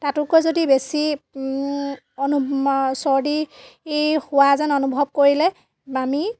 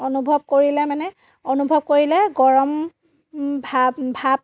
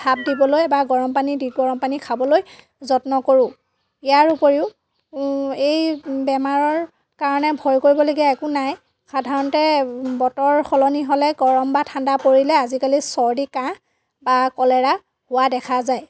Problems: none marked